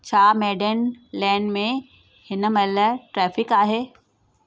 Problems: none marked